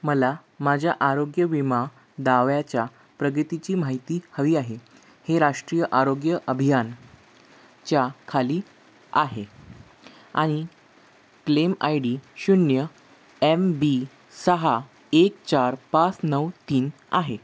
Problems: background sounds at intervals